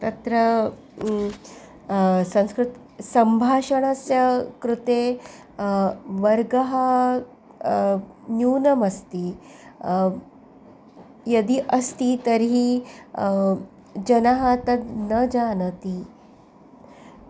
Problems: background sounds at intervals